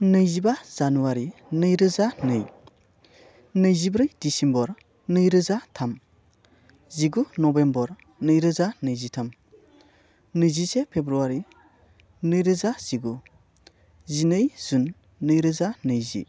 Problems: none marked